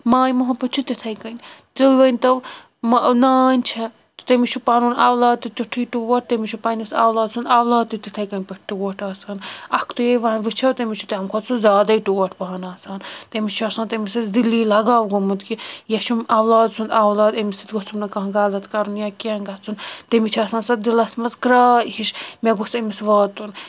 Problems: constant background noise